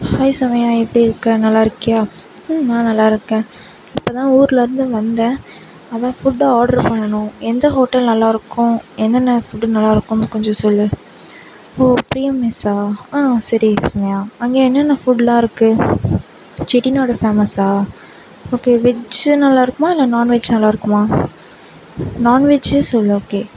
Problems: background sounds at intervals